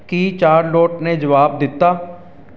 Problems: none marked